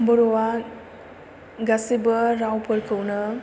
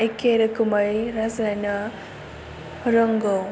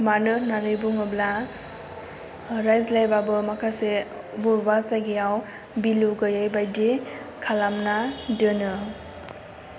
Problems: low volume